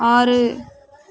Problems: none marked